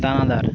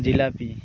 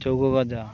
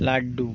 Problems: background sounds at intervals